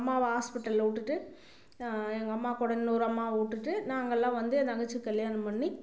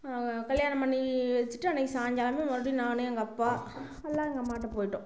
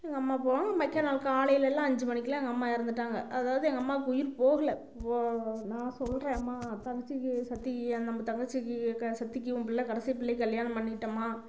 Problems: constant background noise